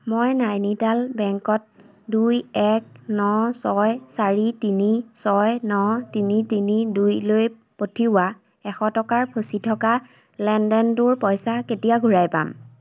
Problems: constant background noise